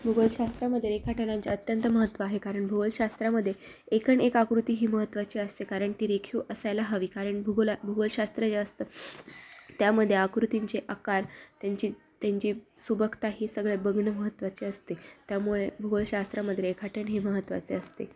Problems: constant background noise, background conversations at intervals